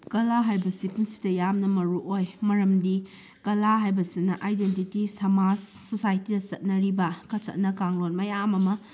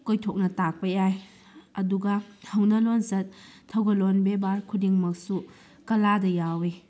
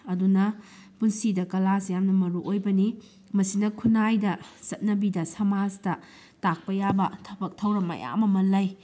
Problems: background sounds at intervals